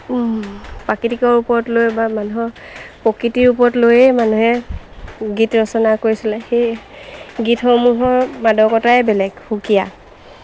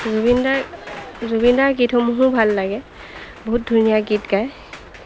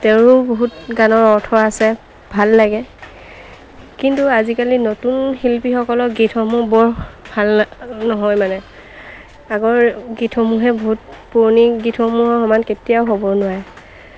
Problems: constant background noise, background conversations at intervals